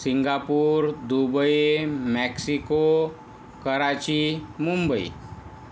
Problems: none marked